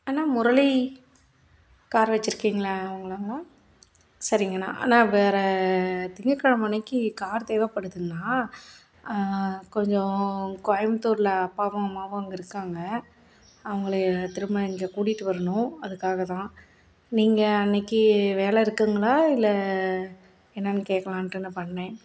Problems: none marked